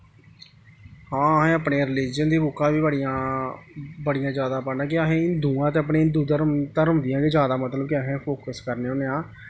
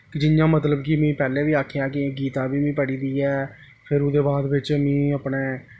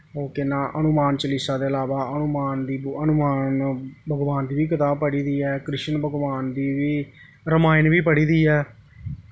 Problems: none marked